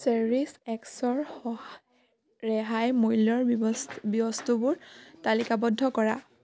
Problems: none marked